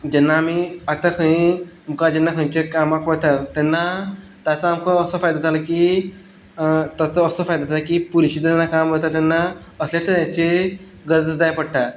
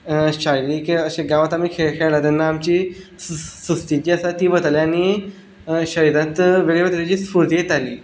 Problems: none marked